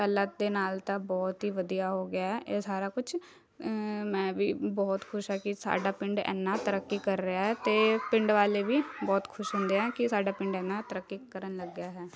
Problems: constant background noise, continuous background conversations